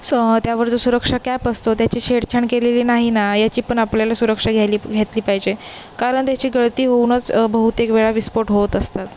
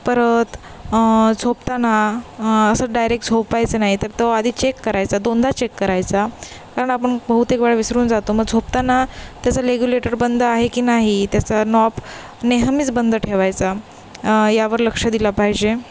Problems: constant background noise, background conversations at intervals